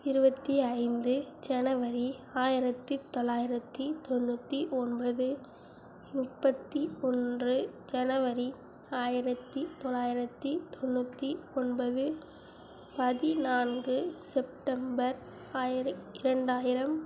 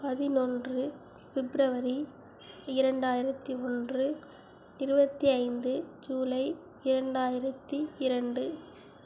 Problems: none marked